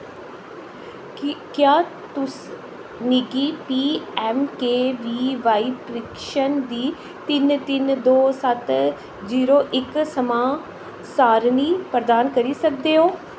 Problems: constant background noise